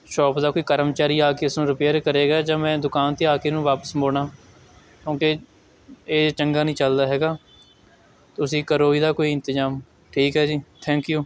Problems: none marked